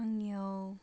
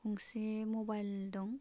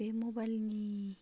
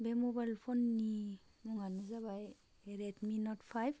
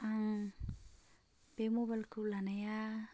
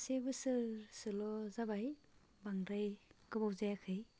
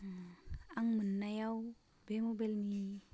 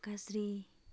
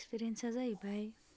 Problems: constant background noise